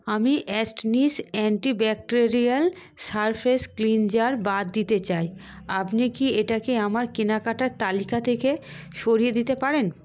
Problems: none marked